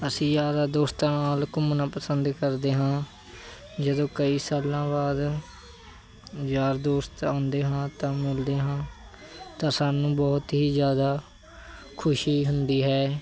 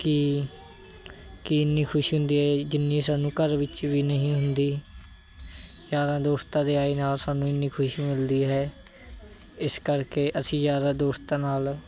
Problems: none marked